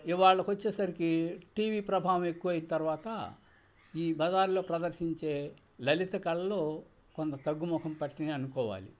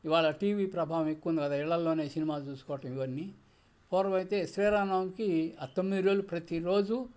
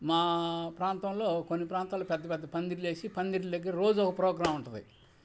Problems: constant background noise